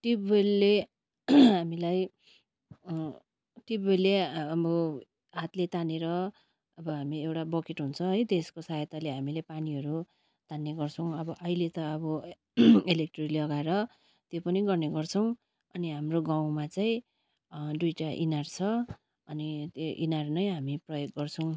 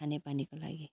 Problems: constant background noise